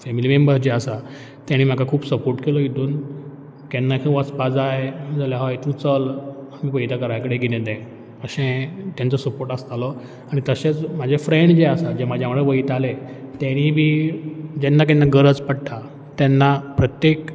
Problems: none marked